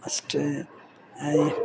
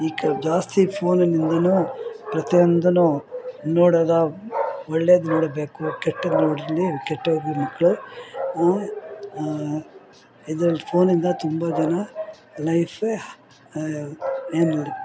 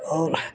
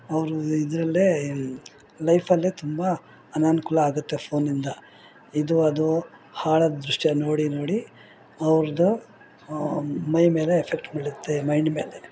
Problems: background conversations at intervals